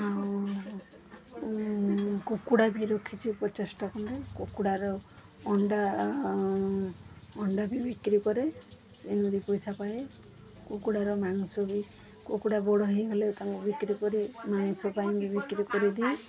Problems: constant background noise, continuous background conversations